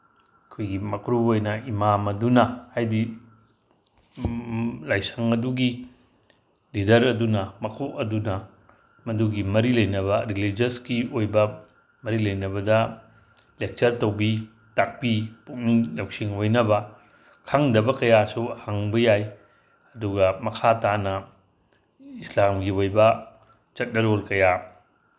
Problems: none marked